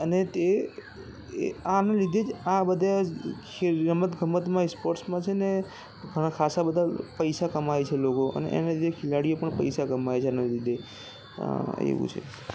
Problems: constant background noise, background conversations at intervals